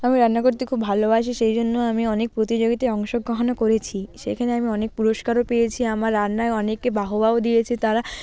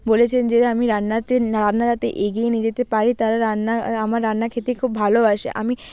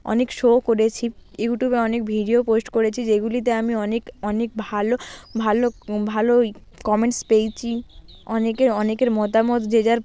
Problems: background sounds at intervals